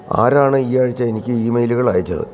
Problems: background conversations at intervals